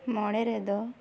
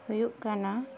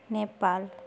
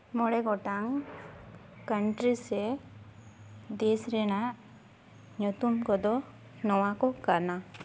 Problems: background sounds at intervals